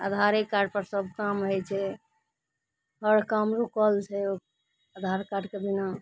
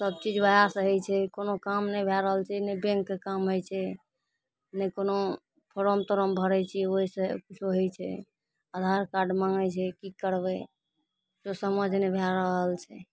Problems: none marked